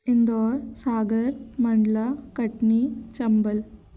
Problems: background sounds at intervals